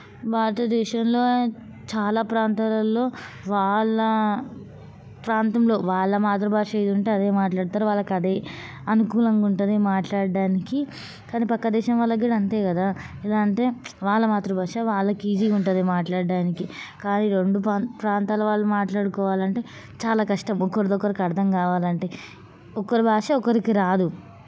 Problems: constant background noise, background conversations at intervals